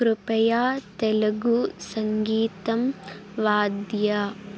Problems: constant background noise